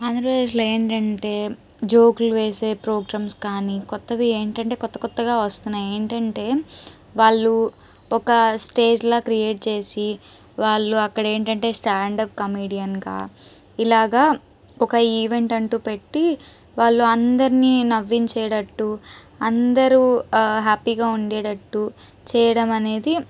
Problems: background sounds at intervals